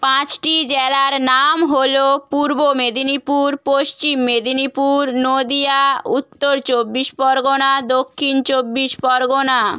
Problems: none marked